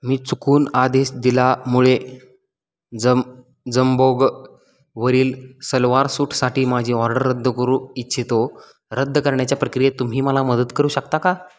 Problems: none marked